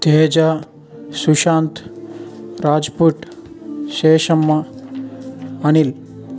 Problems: constant background noise